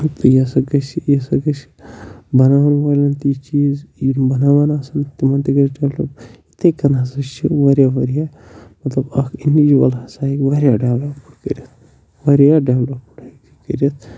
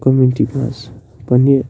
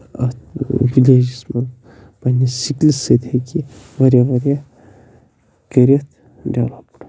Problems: constant background noise, low volume